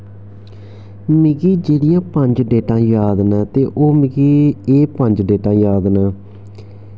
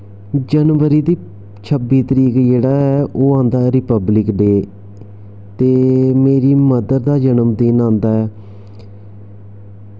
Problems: constant background noise